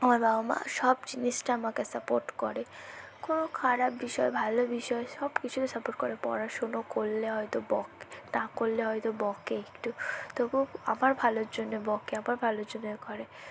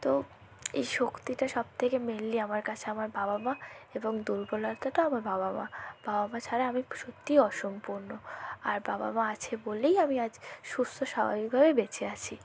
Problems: low volume